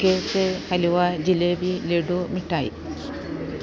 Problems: constant background noise